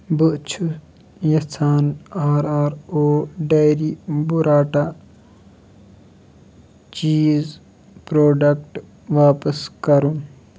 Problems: background sounds at intervals